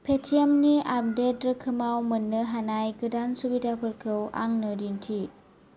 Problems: none marked